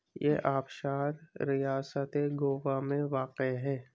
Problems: constant background noise, low volume